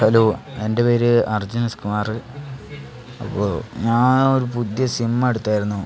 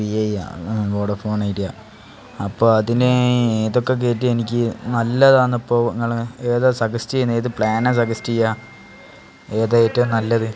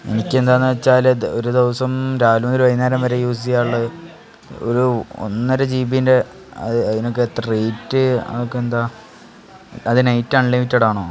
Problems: constant background noise, background conversations at intervals